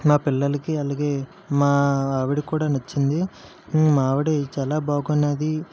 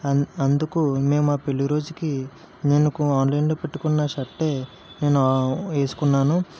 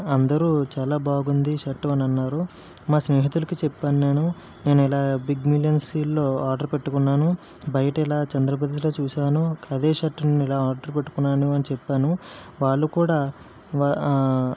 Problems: constant background noise